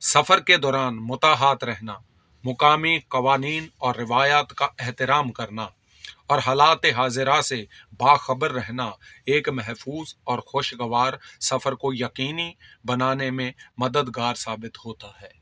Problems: constant background noise